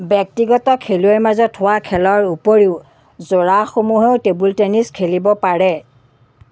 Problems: none marked